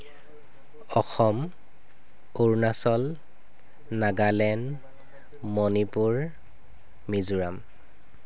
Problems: constant background noise